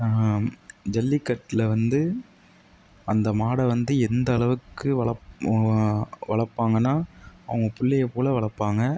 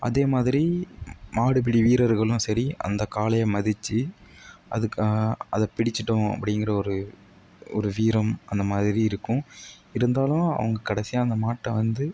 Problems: none marked